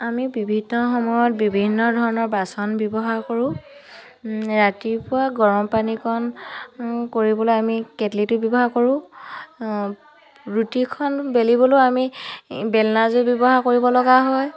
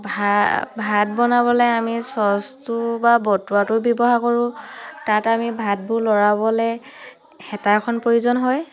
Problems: continuous background conversations